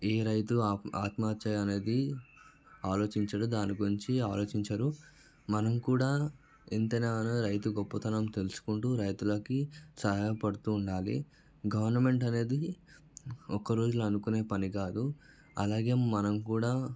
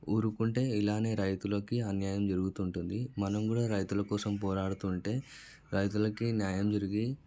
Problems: background sounds at intervals